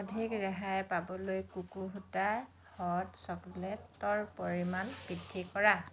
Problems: constant background noise